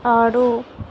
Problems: none marked